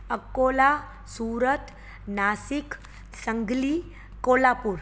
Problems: constant background noise